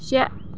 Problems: background sounds at intervals